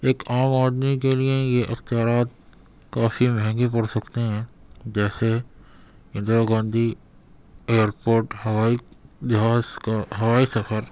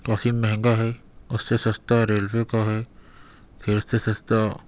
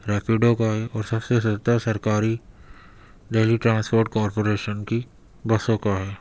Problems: constant background noise